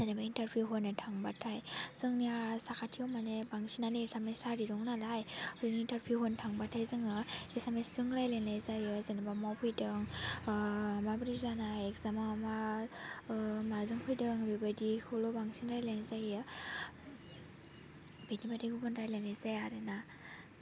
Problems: constant background noise